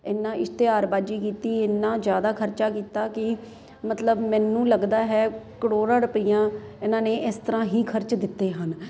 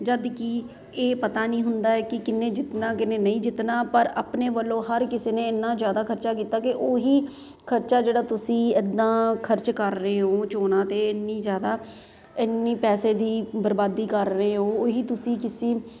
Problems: constant background noise